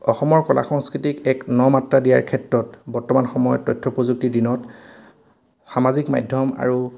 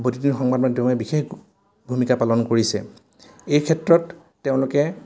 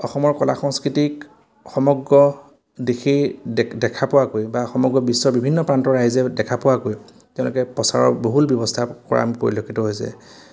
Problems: none marked